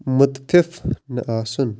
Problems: none marked